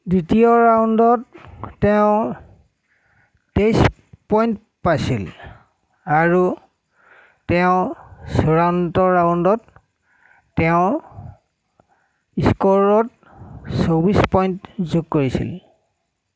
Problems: background sounds at intervals